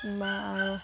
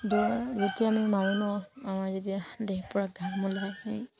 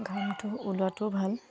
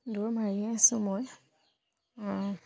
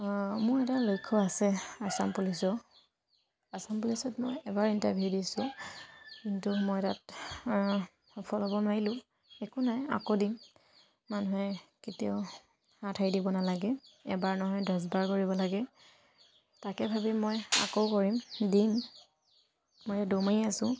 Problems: background sounds at intervals